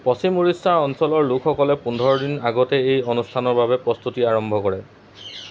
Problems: background sounds at intervals